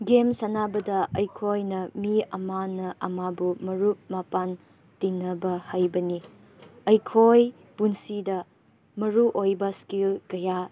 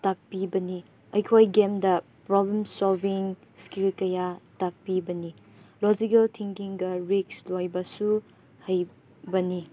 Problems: background sounds at intervals